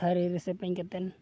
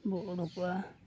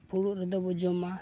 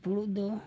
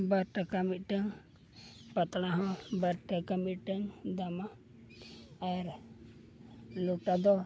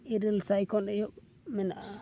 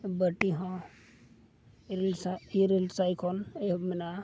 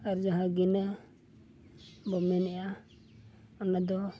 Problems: none marked